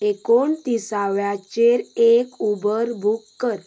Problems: background sounds at intervals